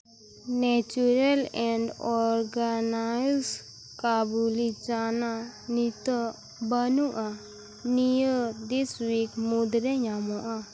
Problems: constant background noise, low volume